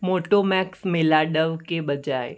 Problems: none marked